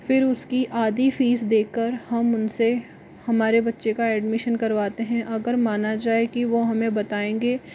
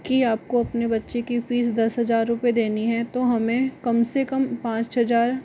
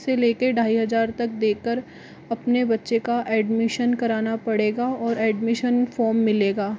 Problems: constant background noise